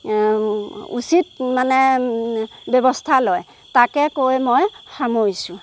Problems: background sounds at intervals